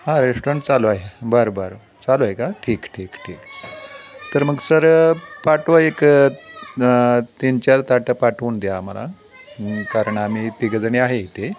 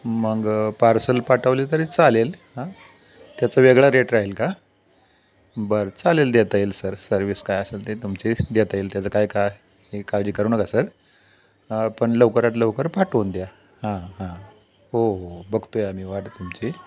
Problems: constant background noise, continuous background conversations